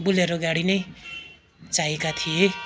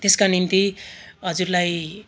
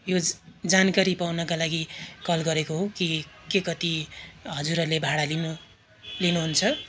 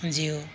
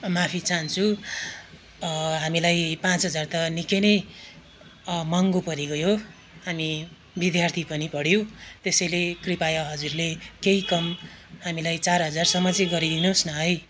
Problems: constant background noise